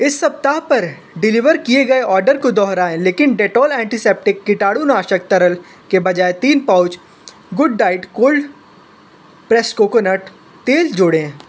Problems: constant background noise